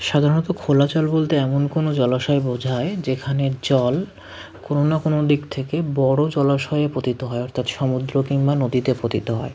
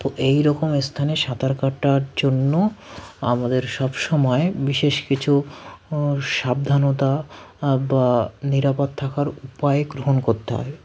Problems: constant background noise